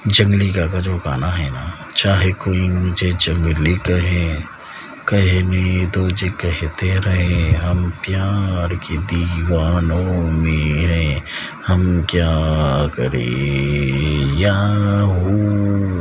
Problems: constant background noise